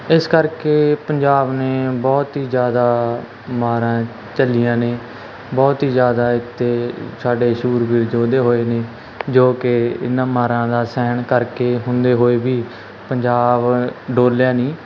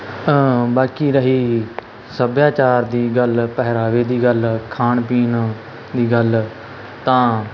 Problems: constant background noise